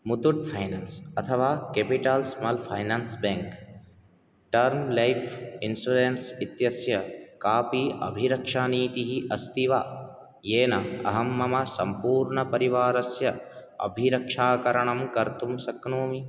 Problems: none marked